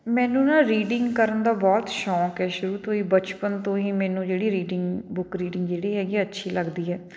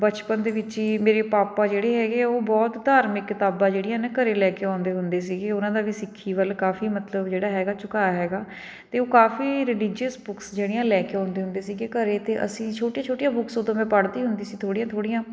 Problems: none marked